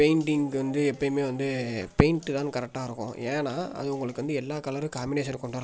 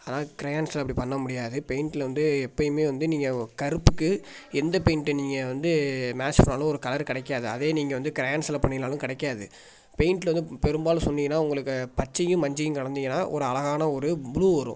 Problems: none marked